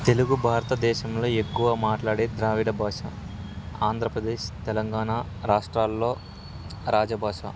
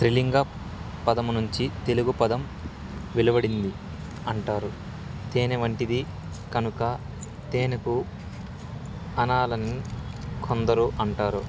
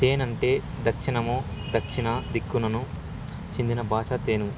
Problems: constant background noise